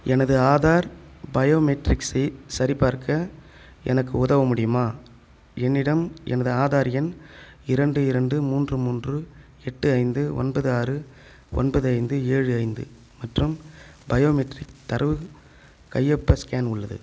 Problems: none marked